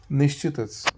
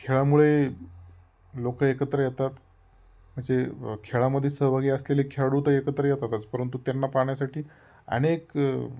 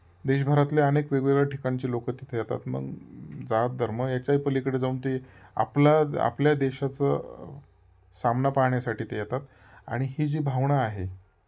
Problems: none marked